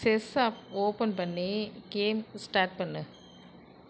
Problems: constant background noise